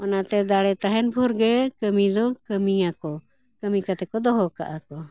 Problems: background conversations at intervals